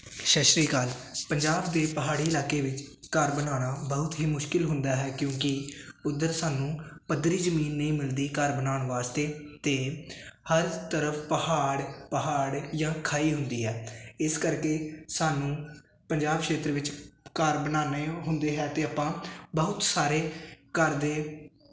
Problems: constant background noise